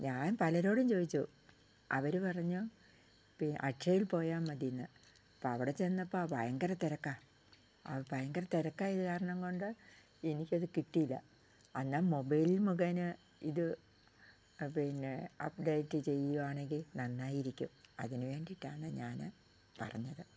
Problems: low volume